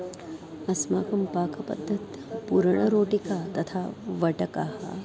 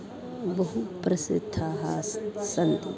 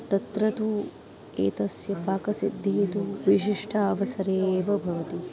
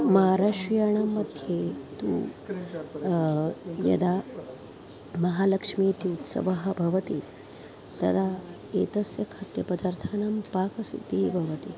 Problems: constant background noise, continuous background conversations